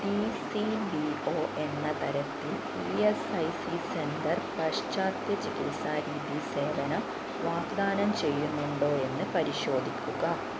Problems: constant background noise